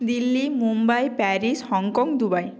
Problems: constant background noise